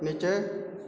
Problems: constant background noise